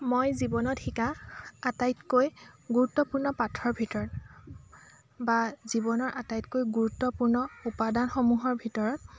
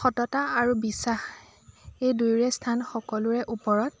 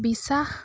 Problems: constant background noise, continuous background conversations